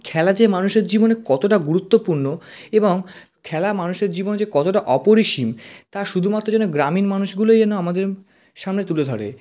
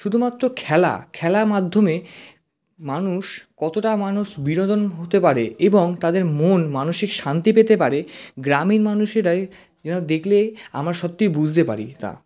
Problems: constant background noise